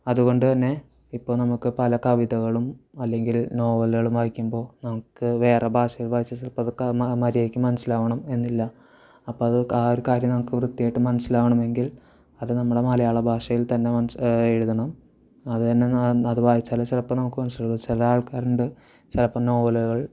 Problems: constant background noise